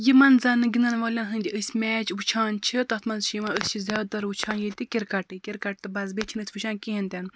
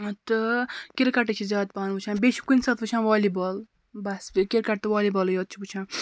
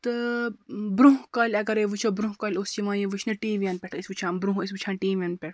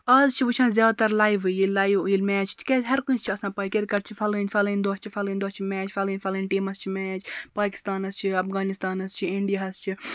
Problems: background sounds at intervals